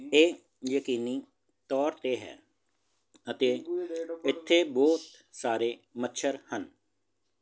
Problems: continuous background conversations